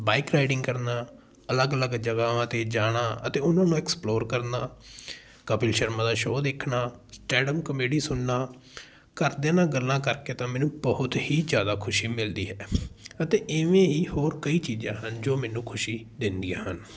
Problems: continuous background conversations